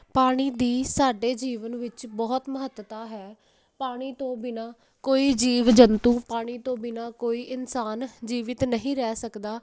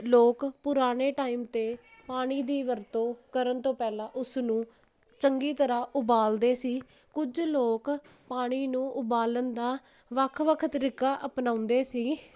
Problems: none marked